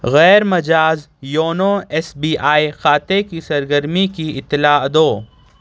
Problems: none marked